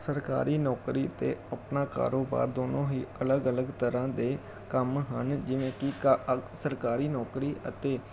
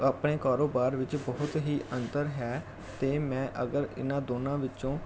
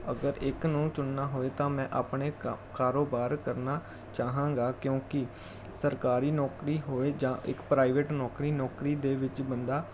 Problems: none marked